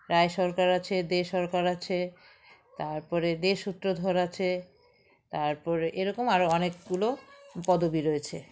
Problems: continuous background conversations